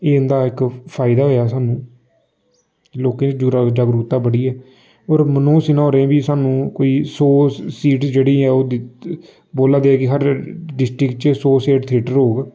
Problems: constant background noise